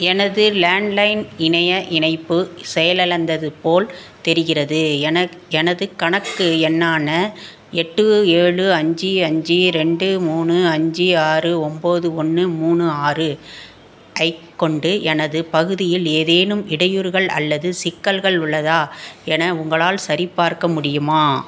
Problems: constant background noise